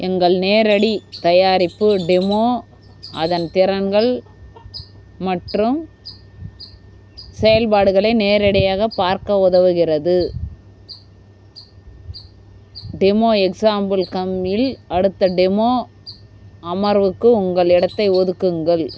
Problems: constant background noise